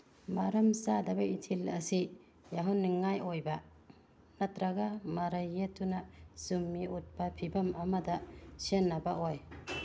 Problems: background sounds at intervals